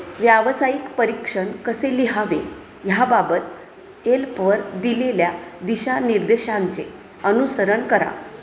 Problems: constant background noise, background conversations at intervals